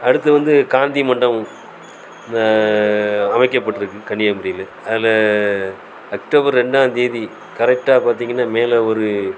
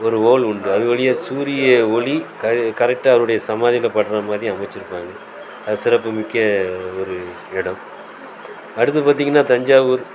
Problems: constant background noise